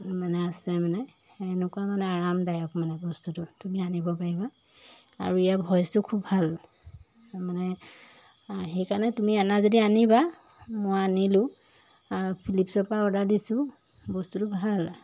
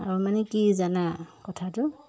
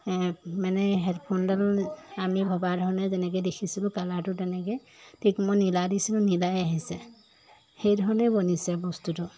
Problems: background sounds at intervals